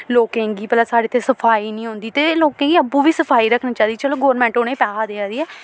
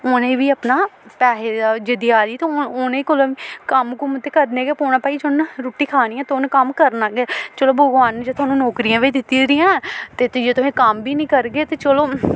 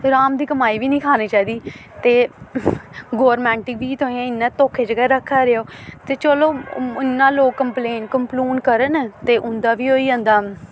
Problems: constant background noise